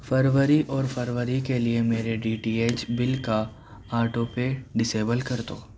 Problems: background sounds at intervals